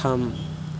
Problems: continuous background conversations